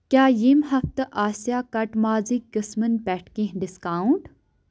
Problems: none marked